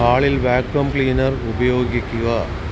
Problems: constant background noise